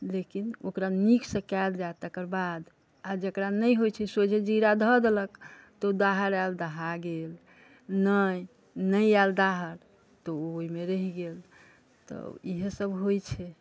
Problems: background conversations at intervals